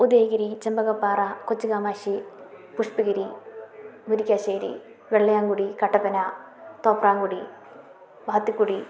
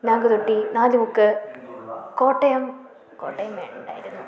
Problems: continuous background conversations